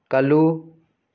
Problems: none marked